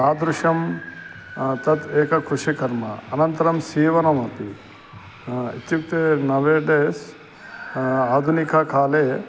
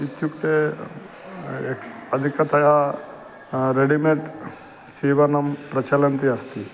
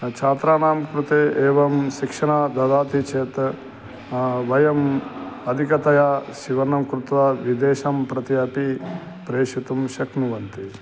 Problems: constant background noise